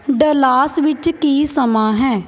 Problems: constant background noise